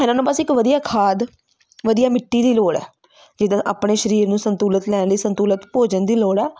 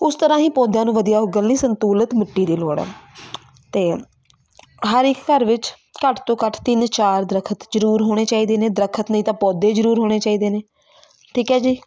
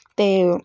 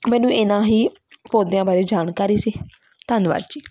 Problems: constant background noise, continuous background conversations